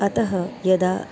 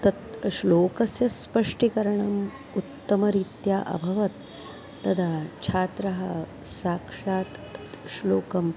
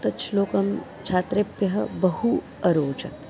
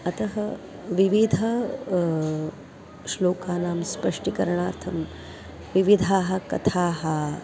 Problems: constant background noise, continuous background conversations